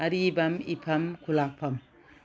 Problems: none marked